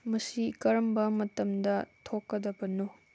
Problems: none marked